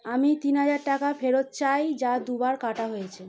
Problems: background sounds at intervals